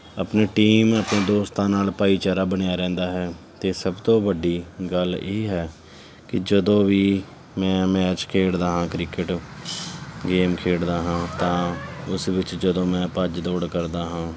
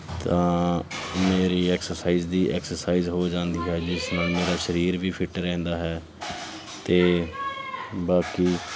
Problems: continuous background conversations